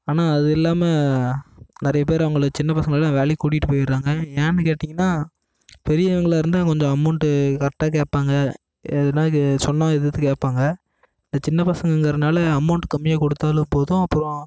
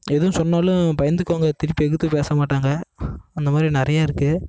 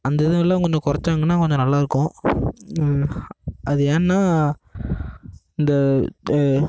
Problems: constant background noise